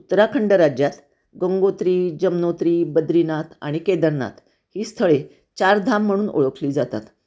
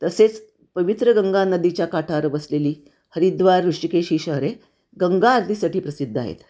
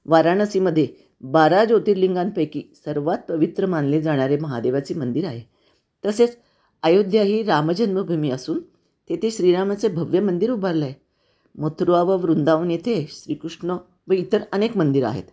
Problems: none marked